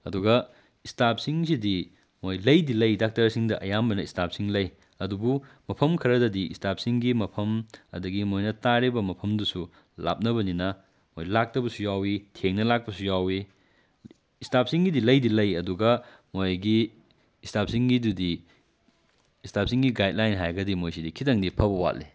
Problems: none marked